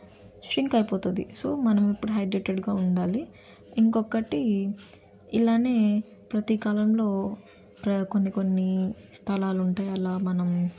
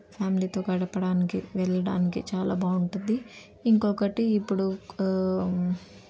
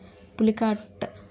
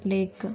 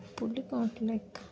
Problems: none marked